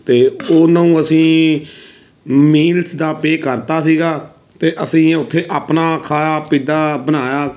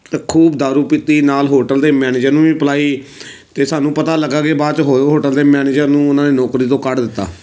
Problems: background sounds at intervals